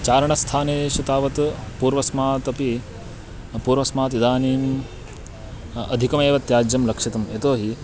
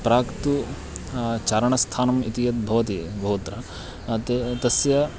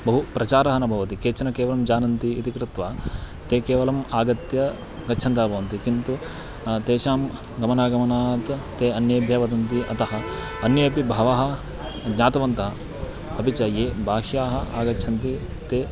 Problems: constant background noise